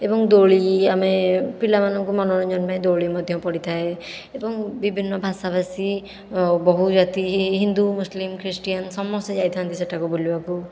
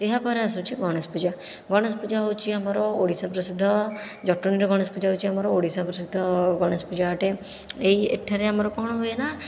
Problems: none marked